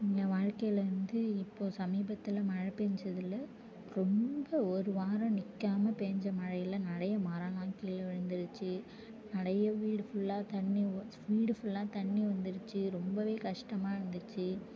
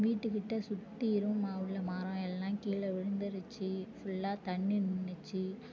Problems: low volume